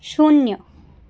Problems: none marked